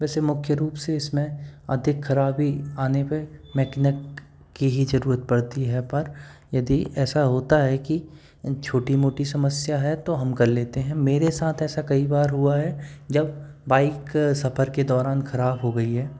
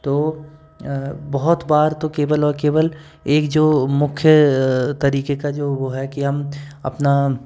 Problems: constant background noise